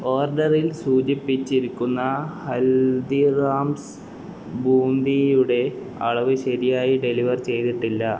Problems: none marked